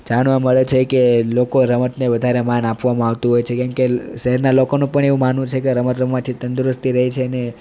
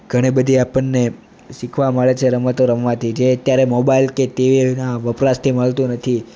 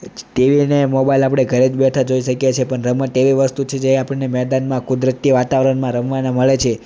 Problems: none marked